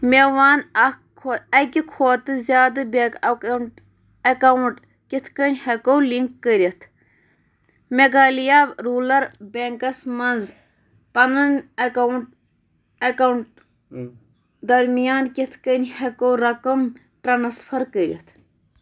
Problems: background sounds at intervals